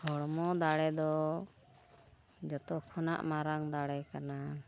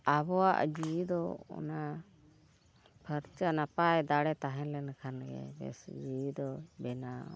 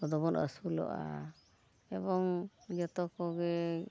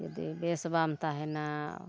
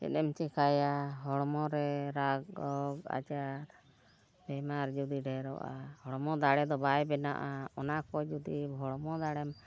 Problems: none marked